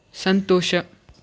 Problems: none marked